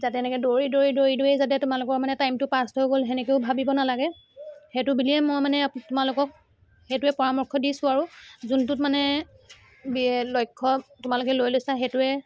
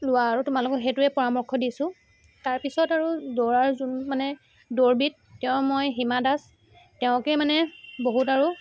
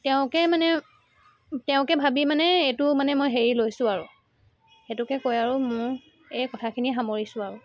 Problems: continuous background conversations